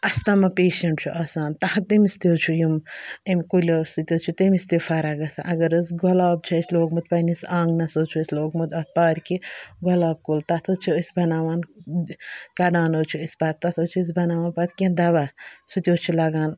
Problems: background sounds at intervals